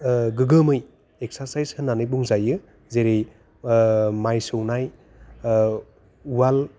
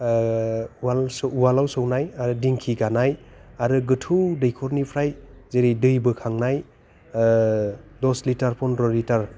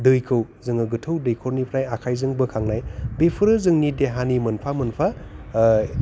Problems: none marked